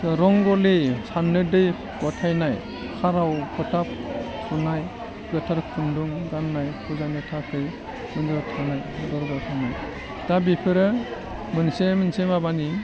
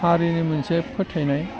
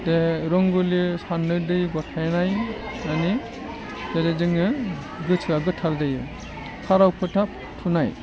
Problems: low volume